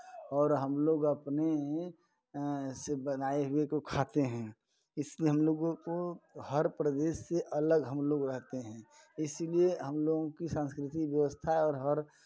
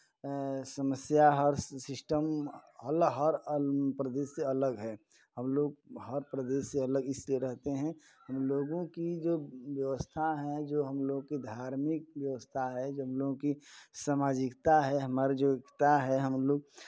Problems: background sounds at intervals